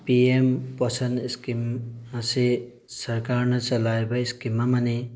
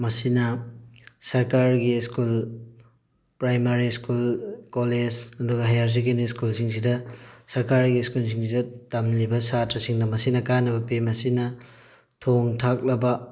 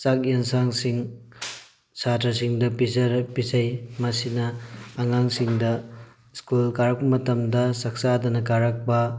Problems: background sounds at intervals